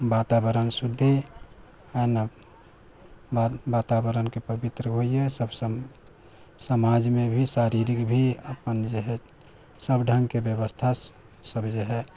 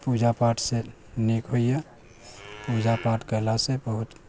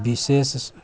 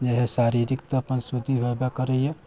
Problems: background sounds at intervals